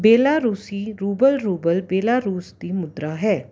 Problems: none marked